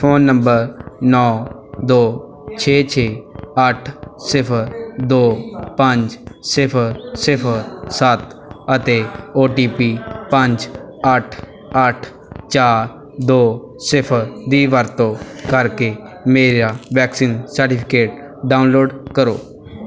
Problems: continuous background conversations